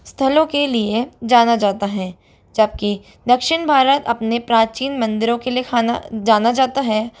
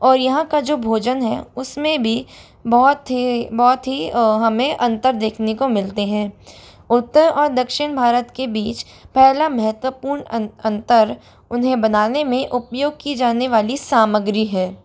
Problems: none marked